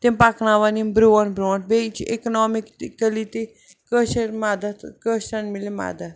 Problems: background sounds at intervals